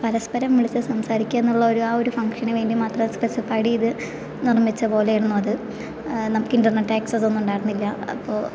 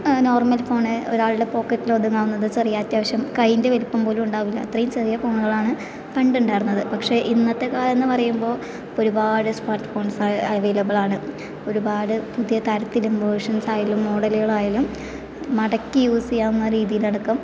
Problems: none marked